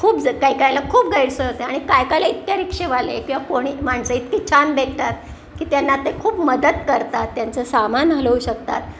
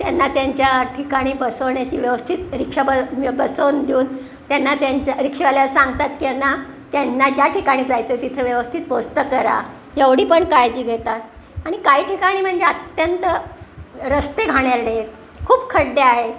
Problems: none marked